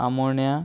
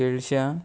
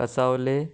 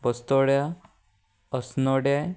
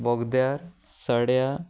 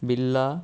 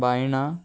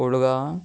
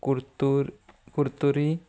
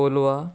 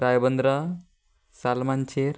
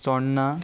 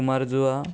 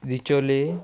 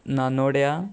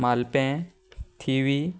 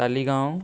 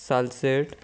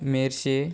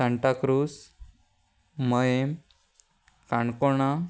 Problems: none marked